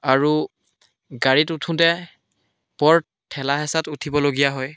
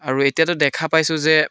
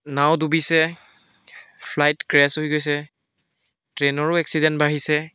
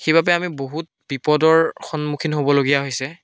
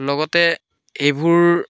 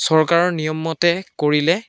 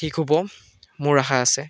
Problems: none marked